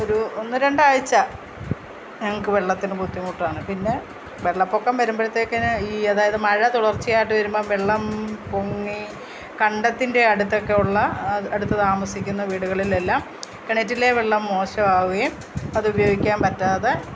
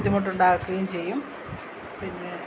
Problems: constant background noise, low volume